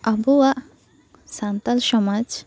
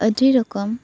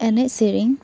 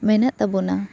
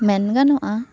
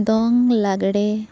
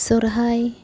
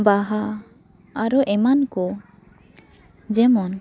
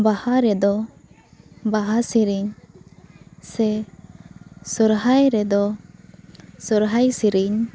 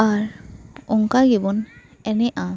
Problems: constant background noise, continuous background conversations